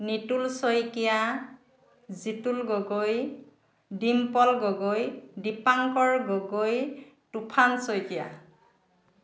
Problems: constant background noise